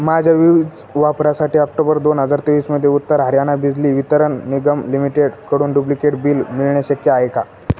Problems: constant background noise, background conversations at intervals